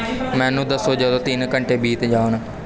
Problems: continuous background conversations